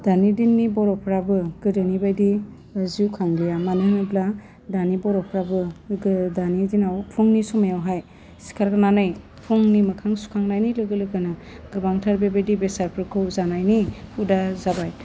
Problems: low volume